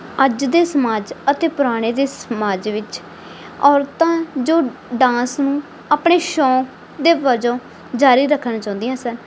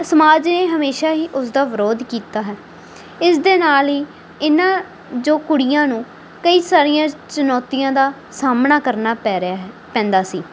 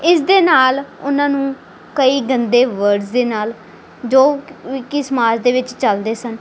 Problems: background sounds at intervals